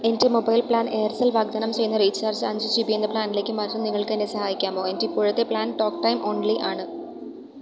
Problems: background sounds at intervals